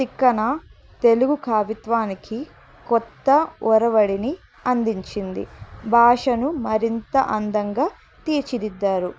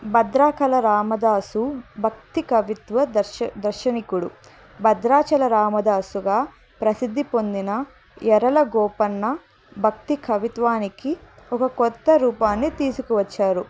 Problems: none marked